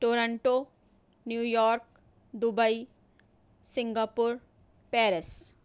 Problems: none marked